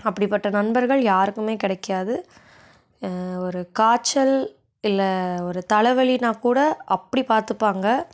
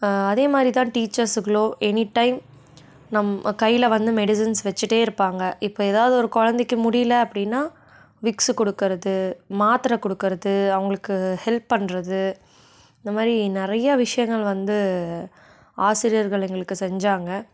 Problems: none marked